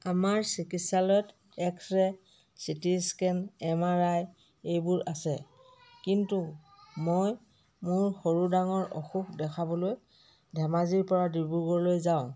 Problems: background conversations at intervals